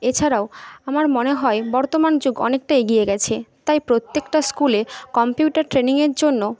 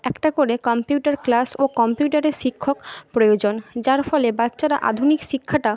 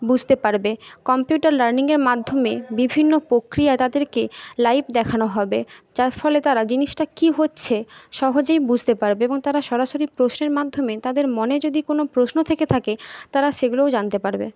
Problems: background conversations at intervals